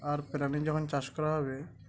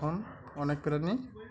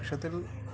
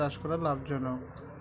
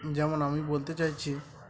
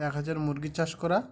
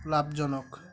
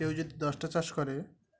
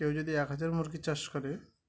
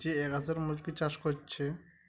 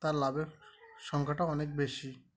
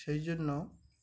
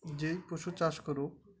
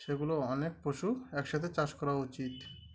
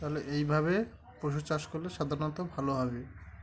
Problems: constant background noise, background conversations at intervals